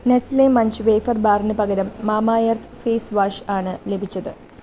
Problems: none marked